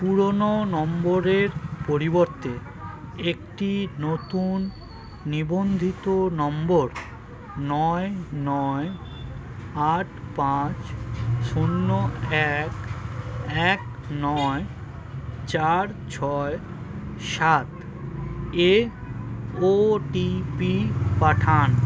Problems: constant background noise, continuous background conversations